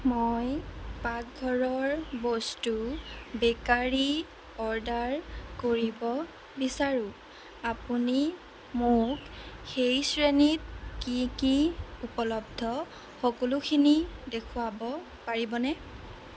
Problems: constant background noise